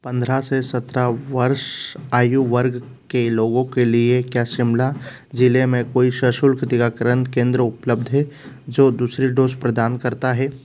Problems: constant background noise